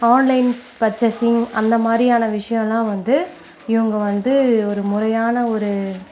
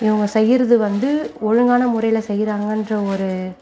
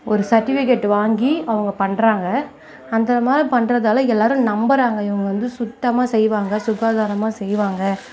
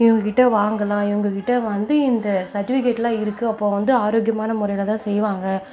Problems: background conversations at intervals